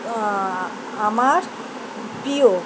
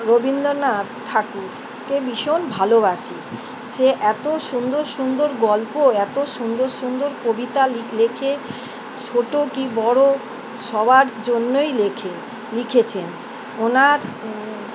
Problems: constant background noise